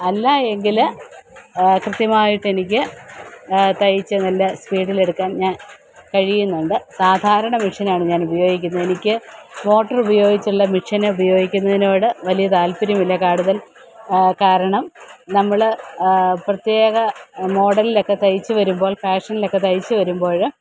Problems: constant background noise